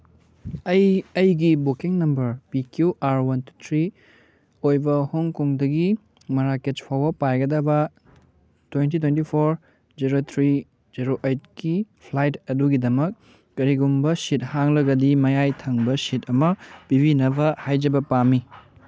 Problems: background sounds at intervals